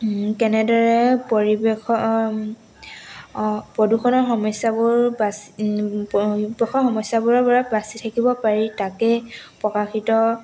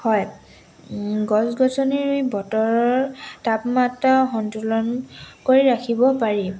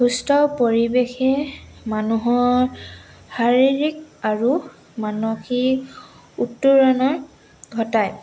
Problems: none marked